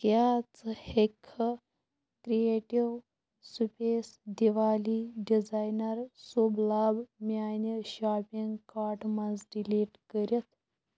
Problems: constant background noise, low volume